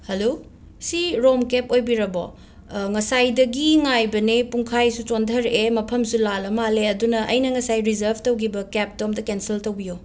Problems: none marked